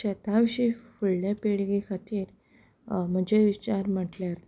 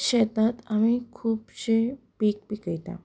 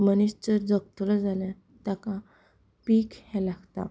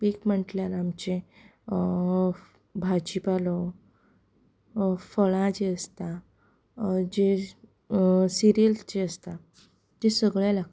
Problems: background conversations at intervals, low volume